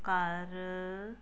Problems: background sounds at intervals